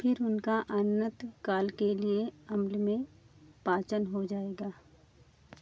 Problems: none marked